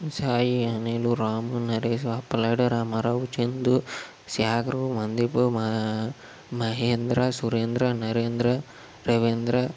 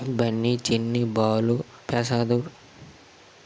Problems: constant background noise